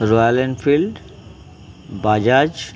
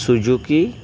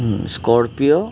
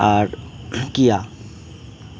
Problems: constant background noise